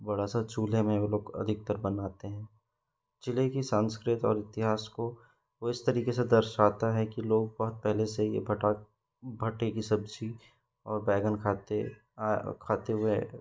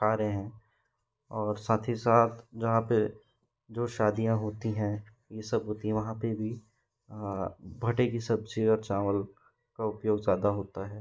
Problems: constant background noise